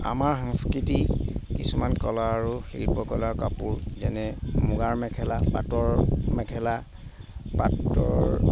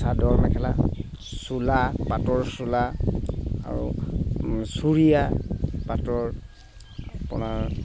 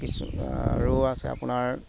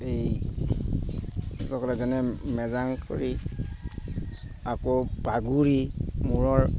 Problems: constant background noise